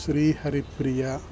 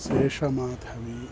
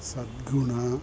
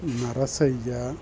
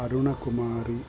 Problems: constant background noise